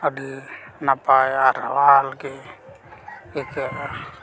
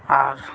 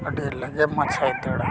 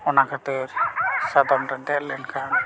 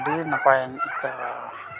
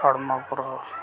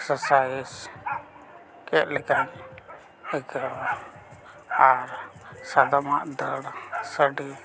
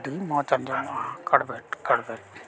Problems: none marked